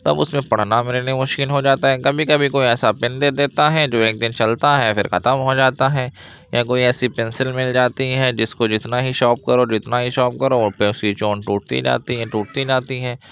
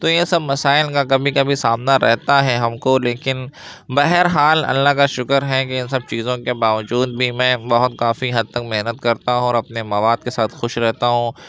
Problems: constant background noise